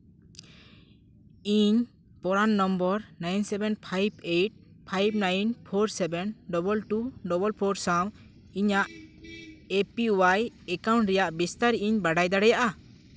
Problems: none marked